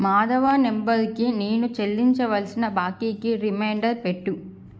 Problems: none marked